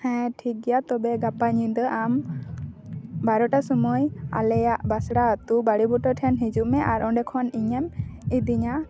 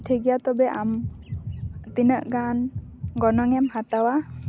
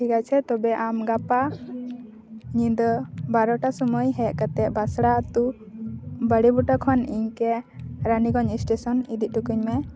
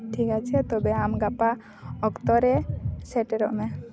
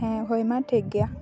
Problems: constant background noise